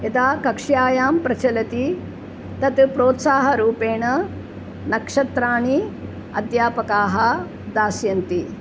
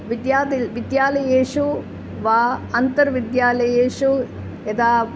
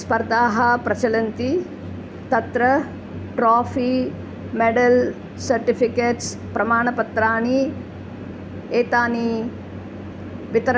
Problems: constant background noise